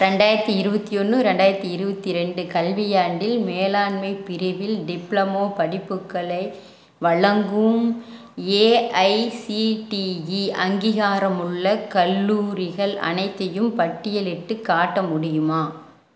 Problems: none marked